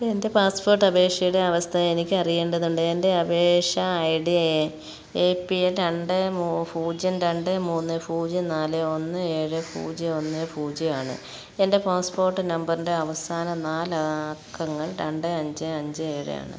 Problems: background sounds at intervals